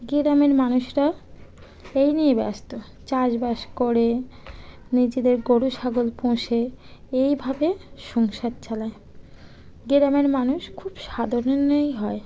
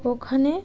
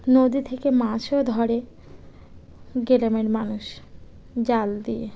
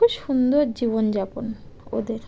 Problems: background conversations at intervals